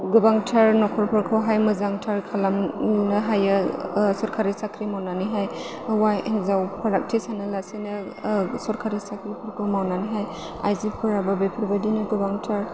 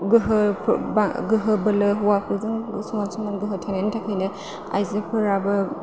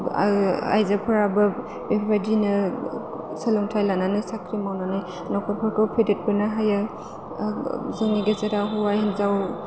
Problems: constant background noise